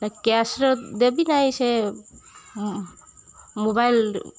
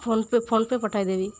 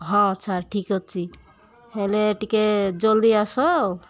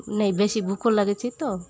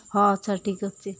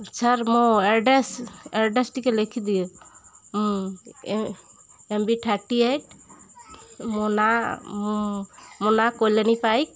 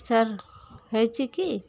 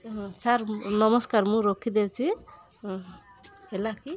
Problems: constant background noise, continuous background conversations